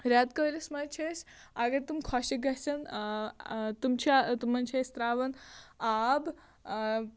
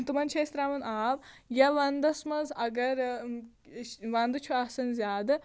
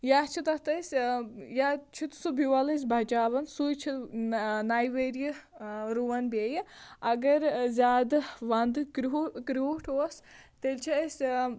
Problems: constant background noise